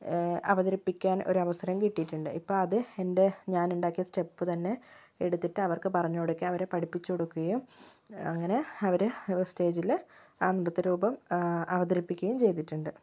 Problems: low volume